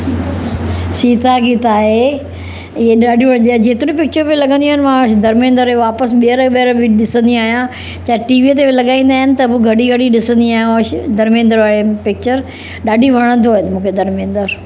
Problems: constant background noise, background conversations at intervals